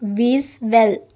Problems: none marked